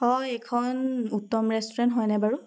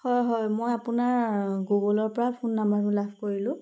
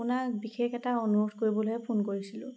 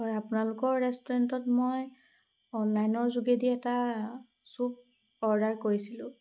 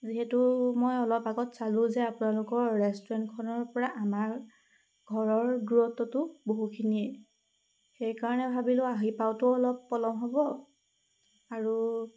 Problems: background sounds at intervals